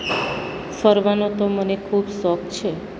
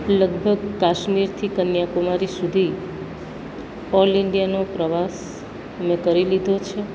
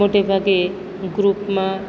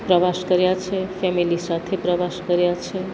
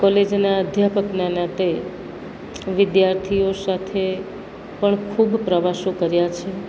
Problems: none marked